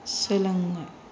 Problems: constant background noise